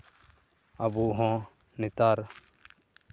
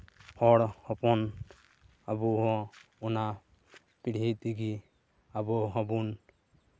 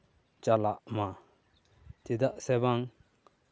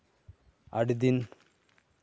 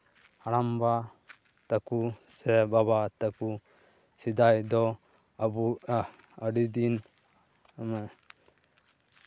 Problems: background sounds at intervals, background conversations at intervals